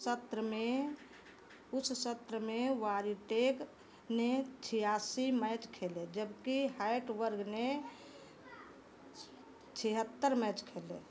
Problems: none marked